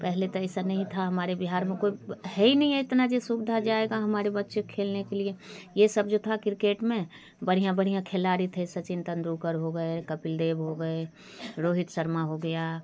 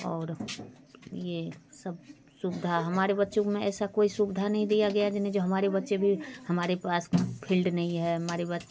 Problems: constant background noise, background conversations at intervals